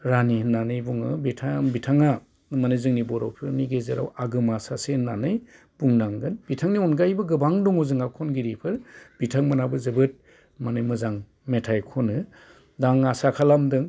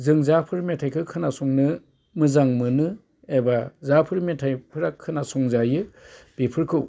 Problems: constant background noise